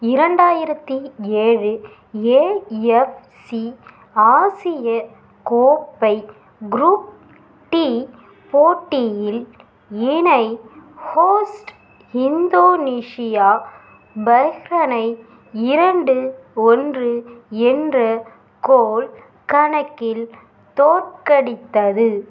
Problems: none marked